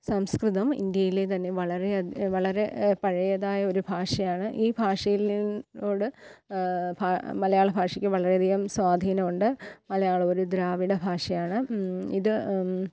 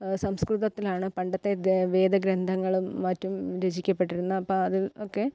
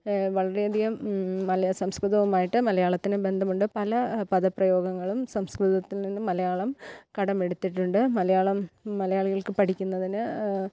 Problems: none marked